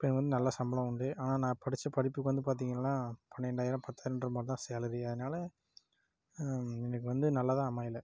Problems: low volume